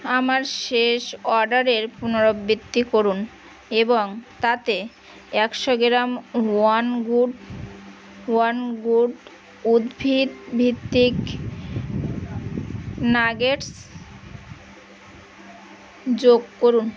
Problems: constant background noise, background conversations at intervals